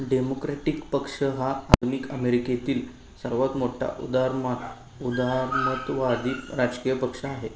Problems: constant background noise, continuous background conversations